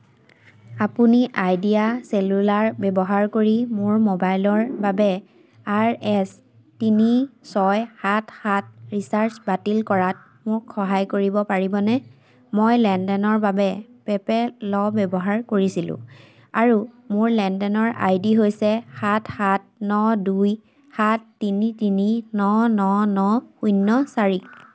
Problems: constant background noise